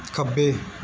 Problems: none marked